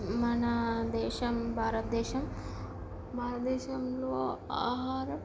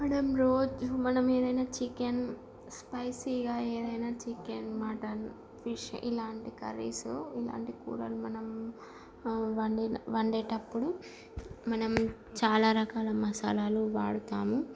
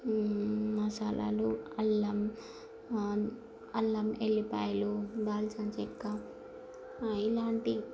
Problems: constant background noise, low volume